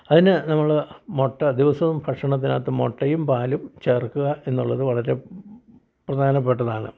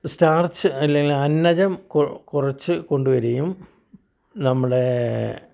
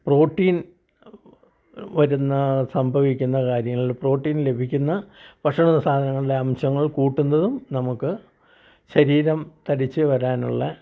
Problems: none marked